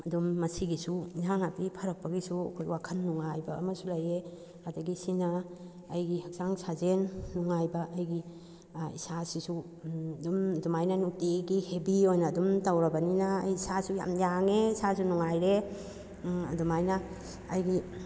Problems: none marked